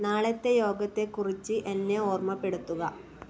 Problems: background sounds at intervals